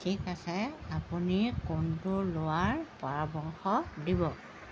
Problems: constant background noise